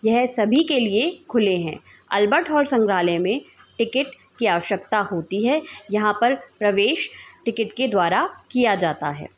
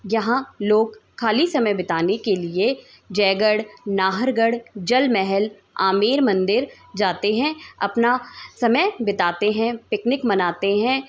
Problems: continuous background conversations